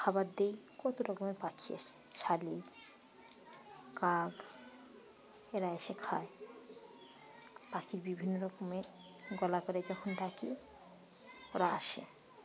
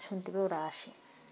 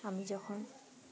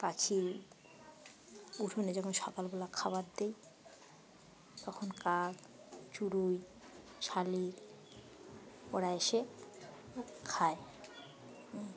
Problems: constant background noise, background conversations at intervals